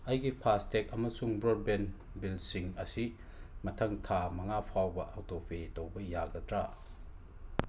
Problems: none marked